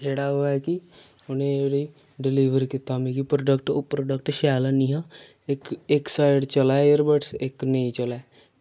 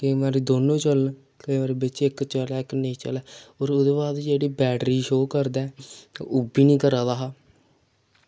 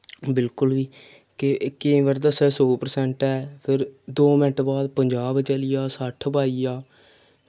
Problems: none marked